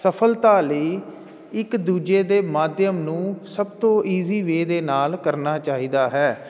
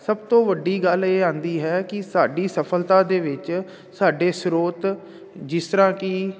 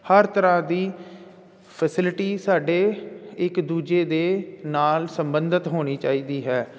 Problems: none marked